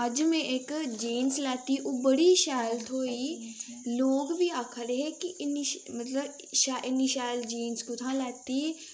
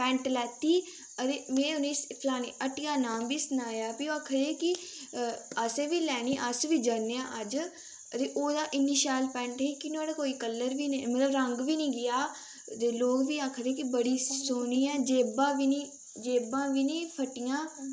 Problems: constant background noise, background conversations at intervals